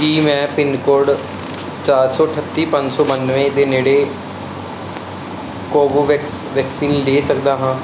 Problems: constant background noise